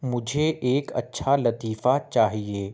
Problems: none marked